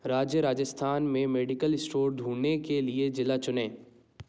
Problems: background sounds at intervals